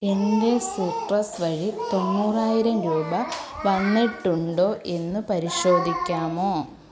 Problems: continuous background conversations